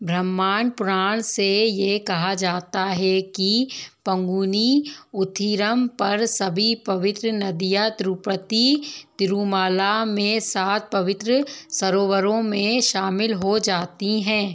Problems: background sounds at intervals